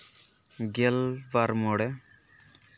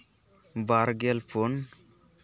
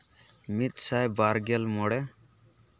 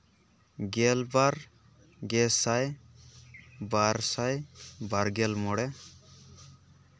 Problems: none marked